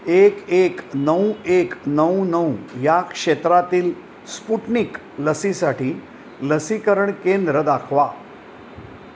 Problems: none marked